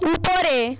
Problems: echo